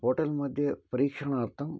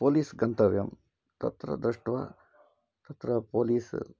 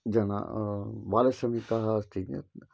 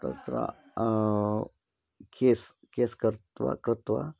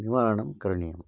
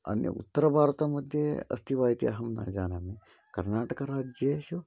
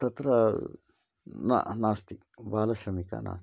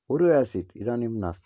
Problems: low volume